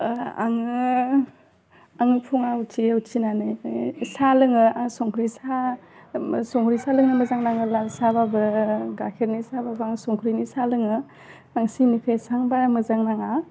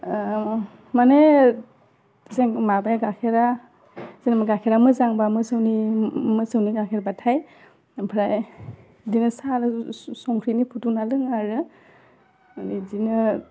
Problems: none marked